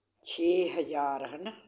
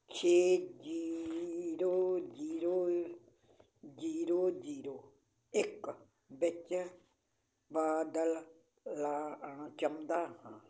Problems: background sounds at intervals